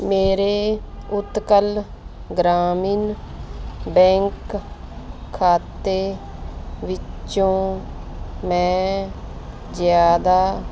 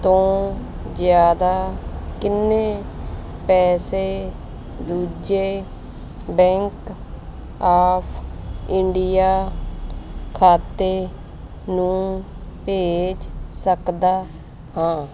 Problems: none marked